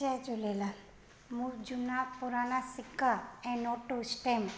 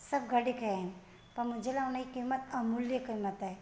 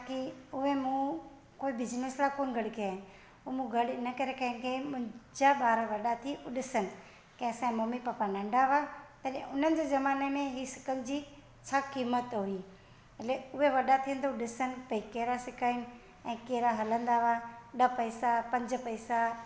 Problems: constant background noise, echo